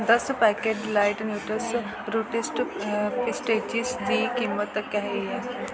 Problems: constant background noise